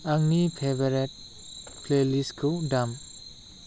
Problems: none marked